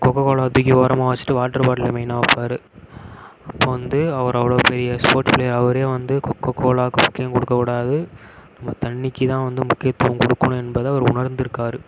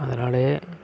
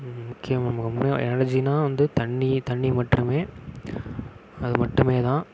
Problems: none marked